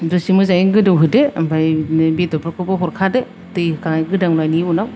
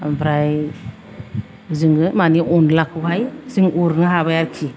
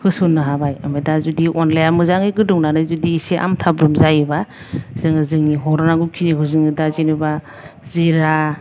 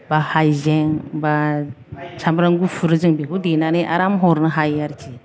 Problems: none marked